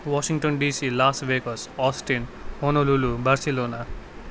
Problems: none marked